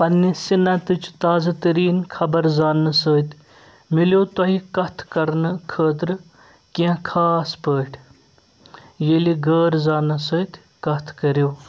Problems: none marked